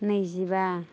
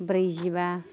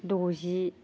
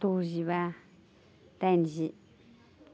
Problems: constant background noise